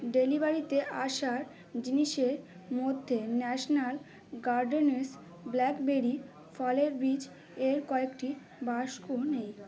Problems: none marked